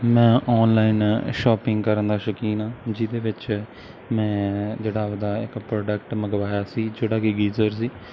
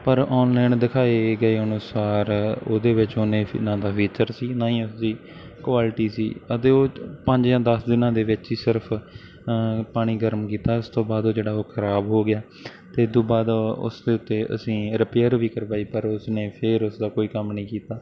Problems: background sounds at intervals